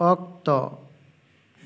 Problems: echo